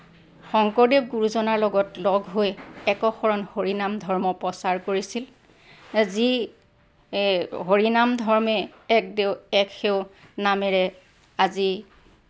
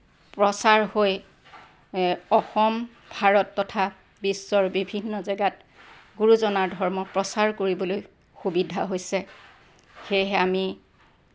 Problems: none marked